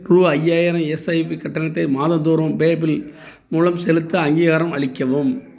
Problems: none marked